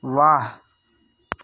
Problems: none marked